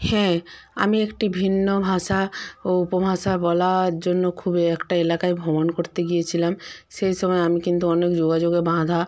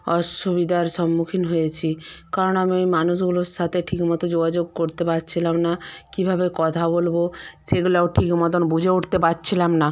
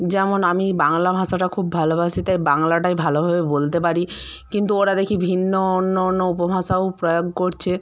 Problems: background conversations at intervals